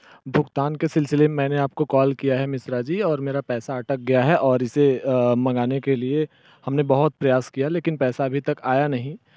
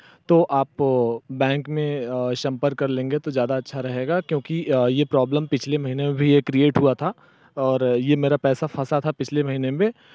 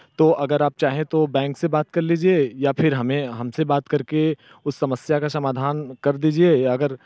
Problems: background sounds at intervals